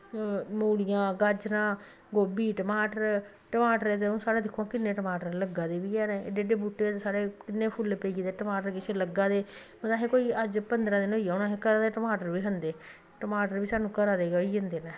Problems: none marked